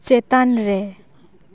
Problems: constant background noise